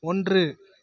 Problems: none marked